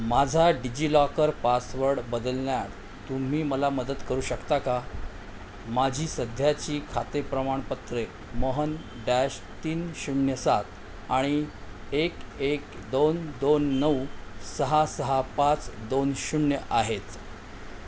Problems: none marked